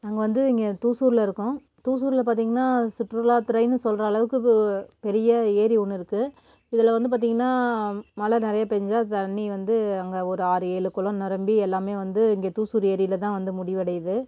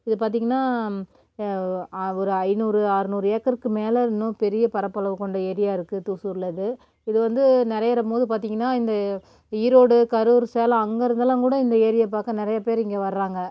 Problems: none marked